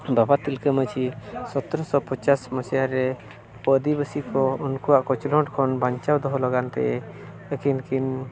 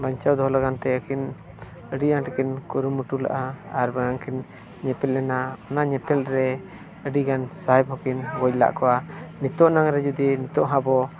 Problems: continuous background conversations